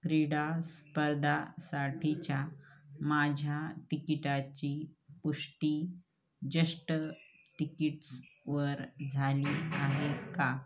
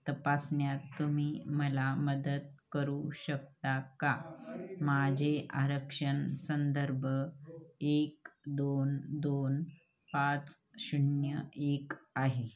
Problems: background sounds at intervals, continuous background conversations